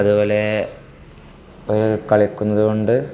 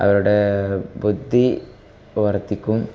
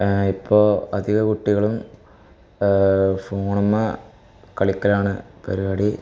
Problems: constant background noise